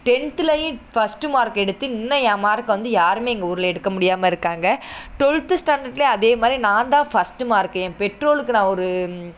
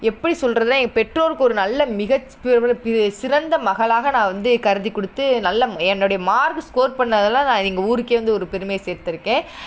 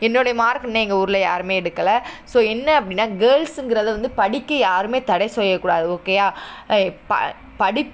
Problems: none marked